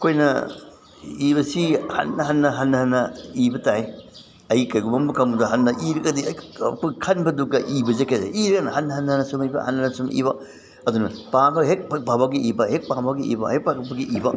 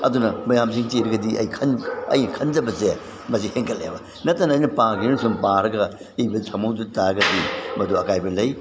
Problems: background sounds at intervals, background conversations at intervals